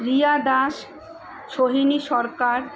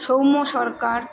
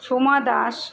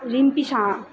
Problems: constant background noise